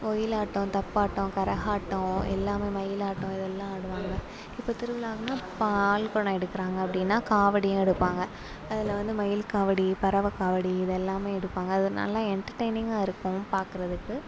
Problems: low volume